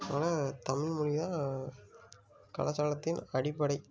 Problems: low volume